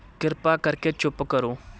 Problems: background sounds at intervals